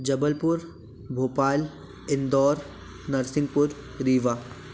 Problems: constant background noise